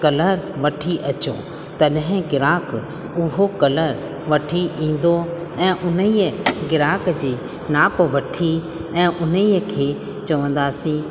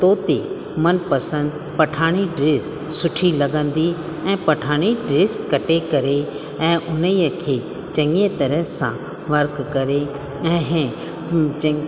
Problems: constant background noise, echo